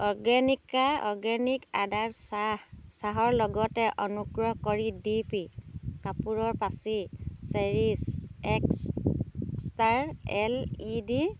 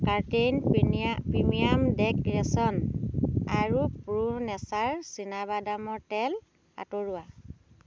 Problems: constant background noise